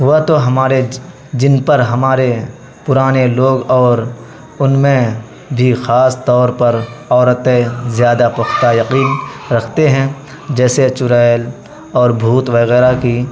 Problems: constant background noise